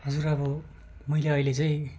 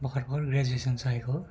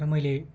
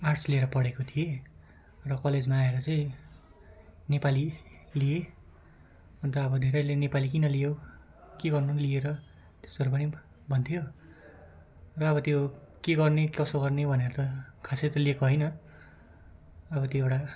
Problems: none marked